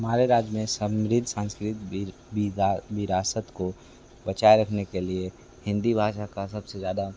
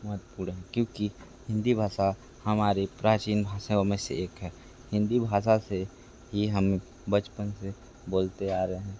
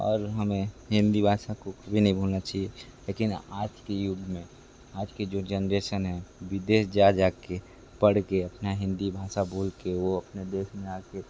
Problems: constant background noise